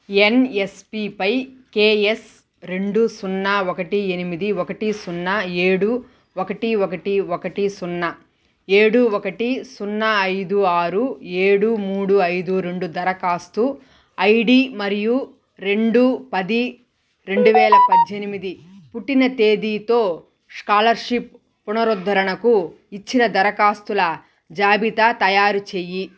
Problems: constant background noise